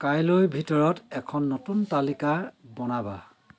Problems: constant background noise